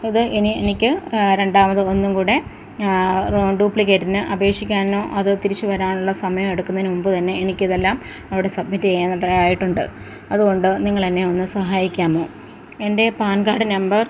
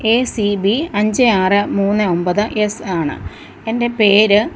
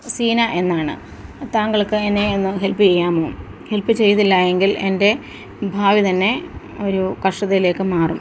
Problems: constant background noise